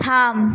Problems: constant background noise